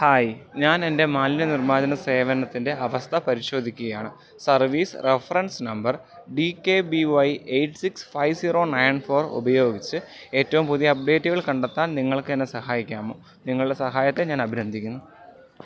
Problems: none marked